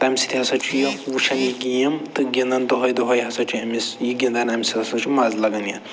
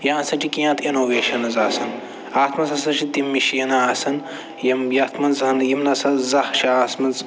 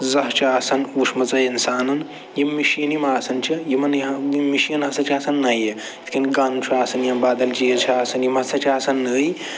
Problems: none marked